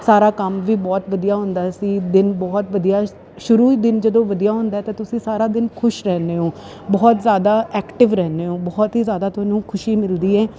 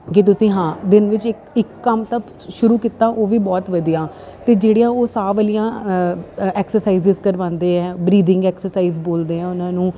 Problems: constant background noise